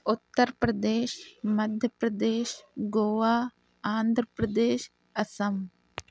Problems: none marked